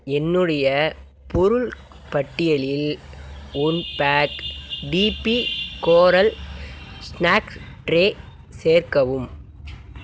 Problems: constant background noise